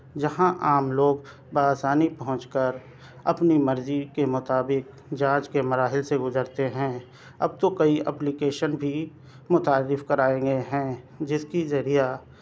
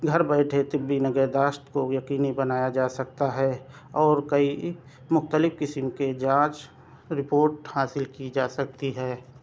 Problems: none marked